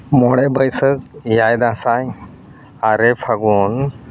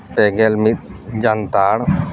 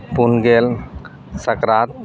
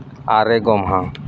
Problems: constant background noise